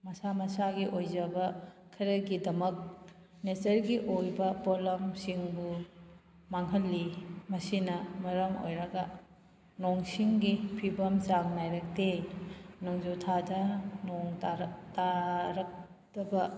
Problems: background sounds at intervals